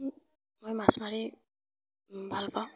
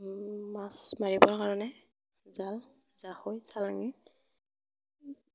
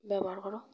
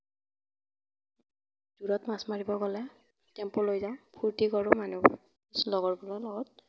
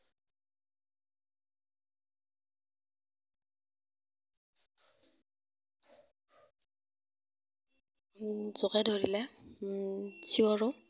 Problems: background sounds at intervals, low volume